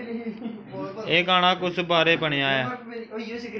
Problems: background sounds at intervals, background conversations at intervals